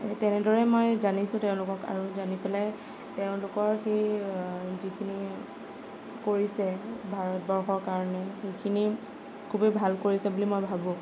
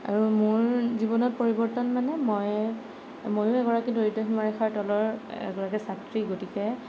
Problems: none marked